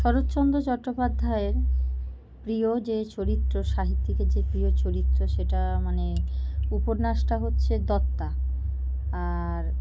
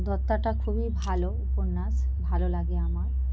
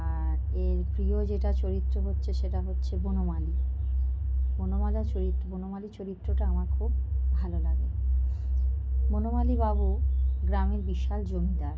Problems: none marked